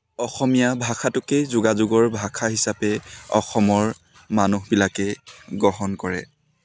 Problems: constant background noise, continuous background conversations